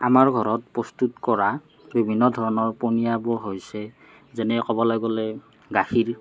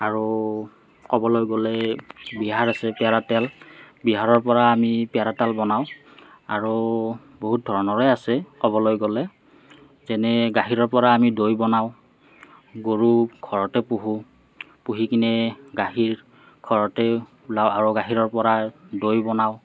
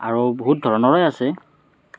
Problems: none marked